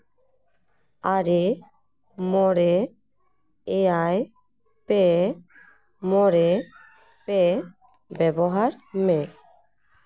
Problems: background conversations at intervals